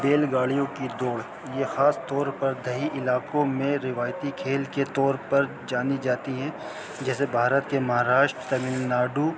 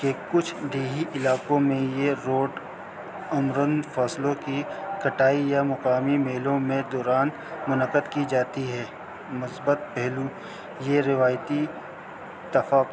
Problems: constant background noise